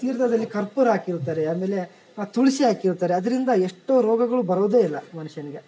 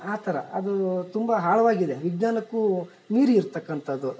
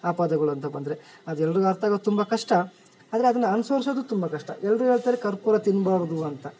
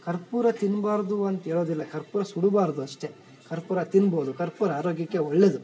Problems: none marked